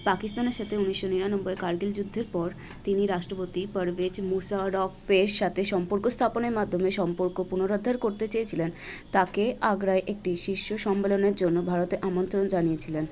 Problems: none marked